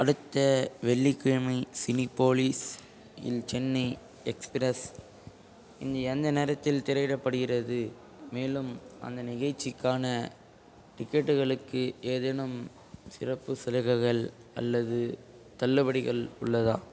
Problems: constant background noise